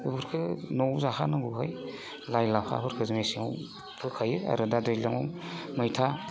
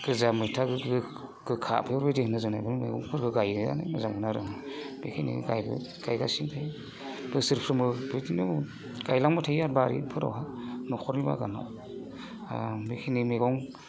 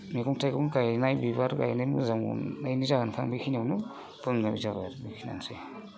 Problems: constant background noise